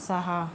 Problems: constant background noise